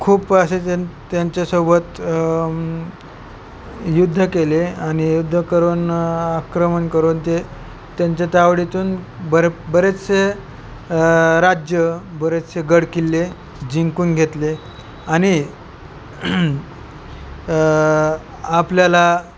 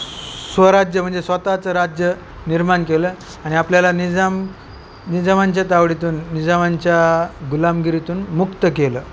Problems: none marked